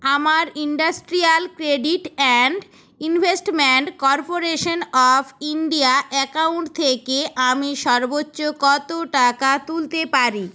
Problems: none marked